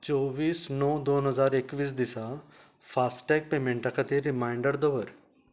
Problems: low volume